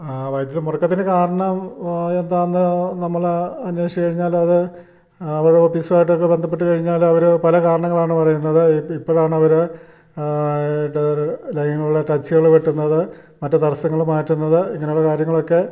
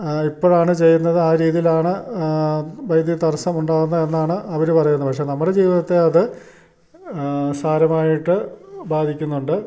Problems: none marked